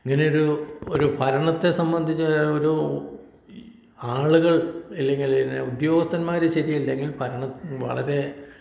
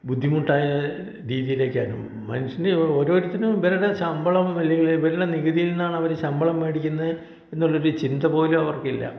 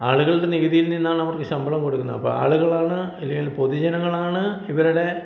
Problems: none marked